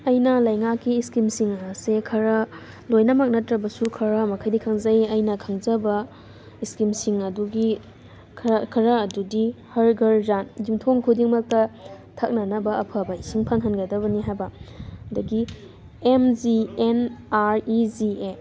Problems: constant background noise